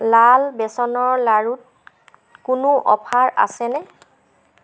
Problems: constant background noise